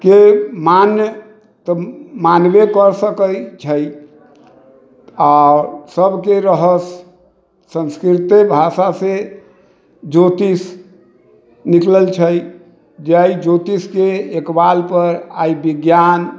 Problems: background sounds at intervals